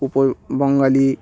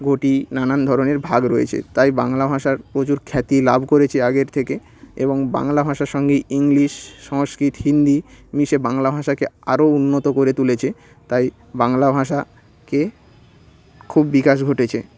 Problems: constant background noise, background conversations at intervals